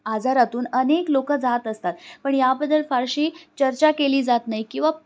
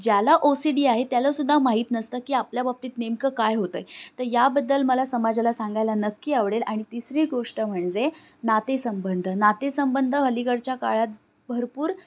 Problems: none marked